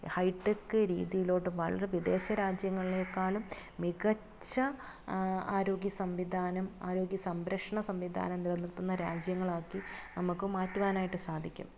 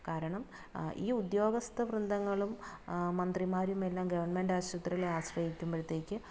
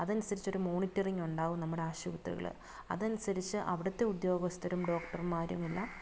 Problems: background sounds at intervals, low volume